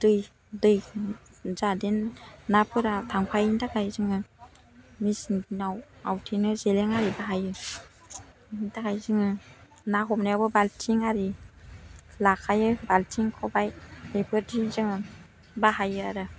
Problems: none marked